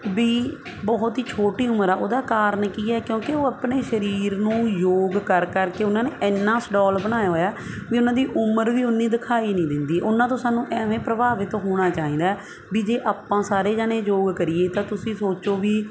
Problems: constant background noise